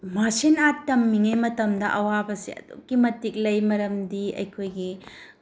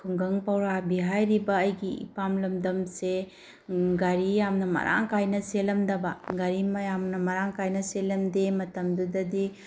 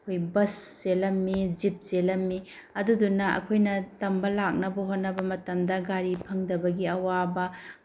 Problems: none marked